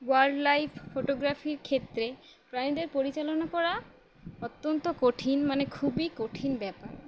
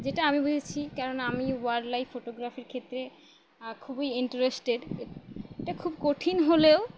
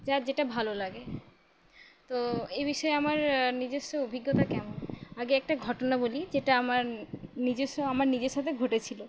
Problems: constant background noise